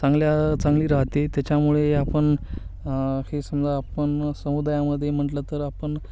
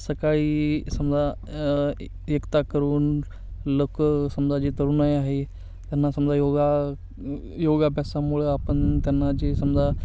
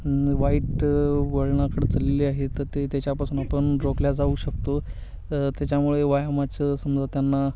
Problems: constant background noise, background conversations at intervals